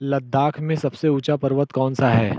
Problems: low volume